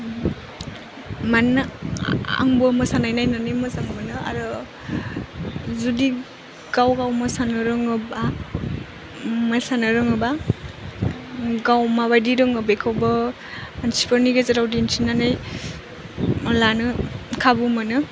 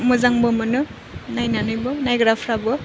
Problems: constant background noise